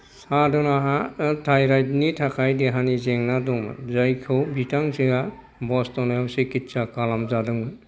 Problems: constant background noise